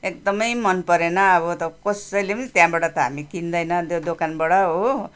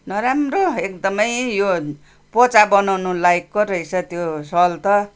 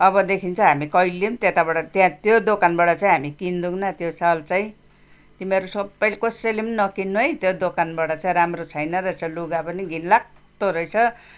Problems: background sounds at intervals